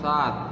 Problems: constant background noise